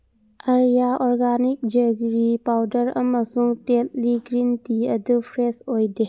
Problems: none marked